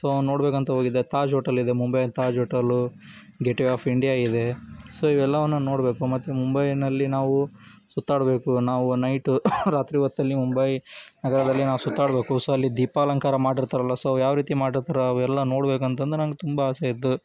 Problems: none marked